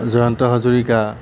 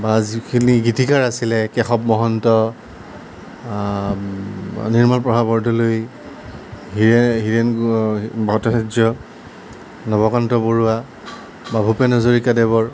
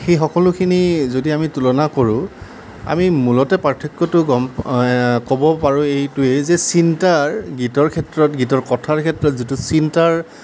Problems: none marked